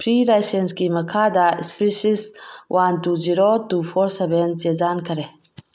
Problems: background sounds at intervals